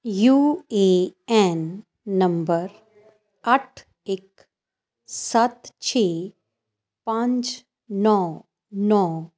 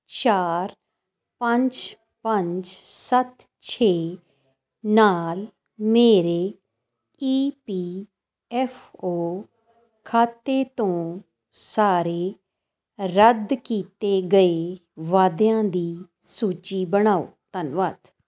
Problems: none marked